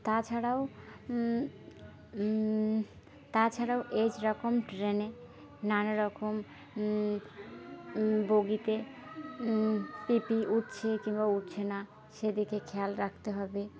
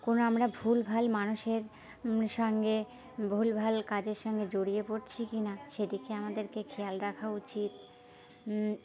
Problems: constant background noise, background conversations at intervals